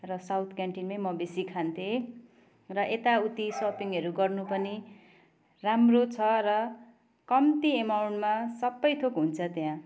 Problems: constant background noise